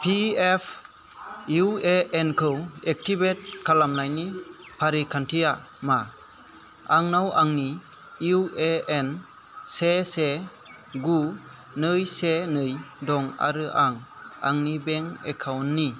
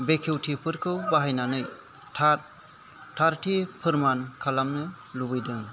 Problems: constant background noise